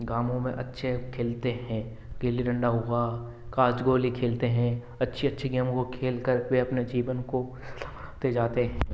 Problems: none marked